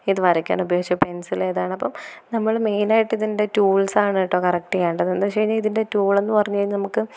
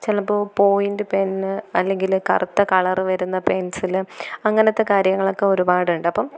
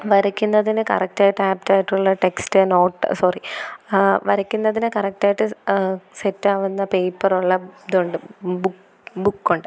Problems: none marked